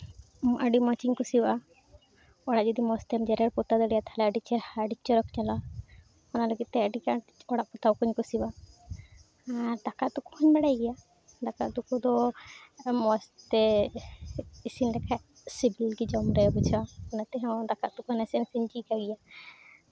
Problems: constant background noise, background conversations at intervals